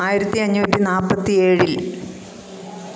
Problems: none marked